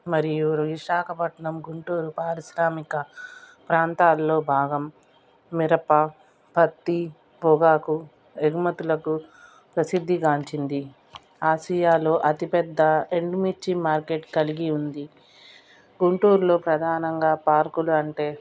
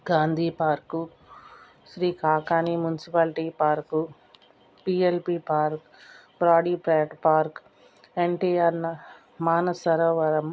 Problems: background sounds at intervals